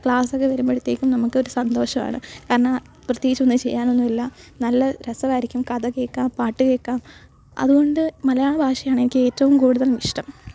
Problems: background sounds at intervals